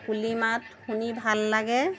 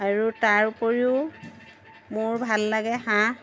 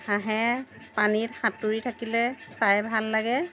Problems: constant background noise